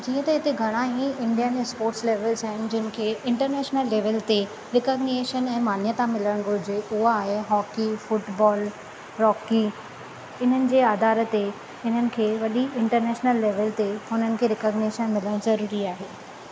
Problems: constant background noise